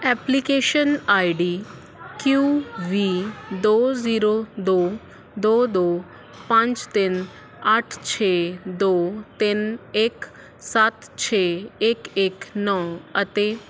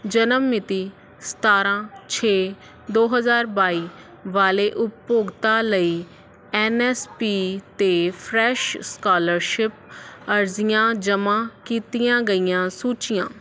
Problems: background sounds at intervals